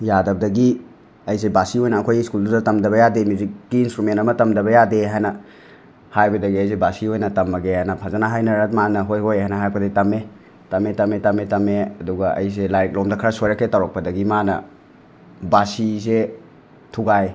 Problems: none marked